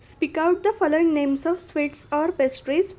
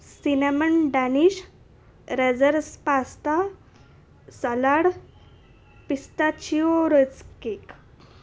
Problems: none marked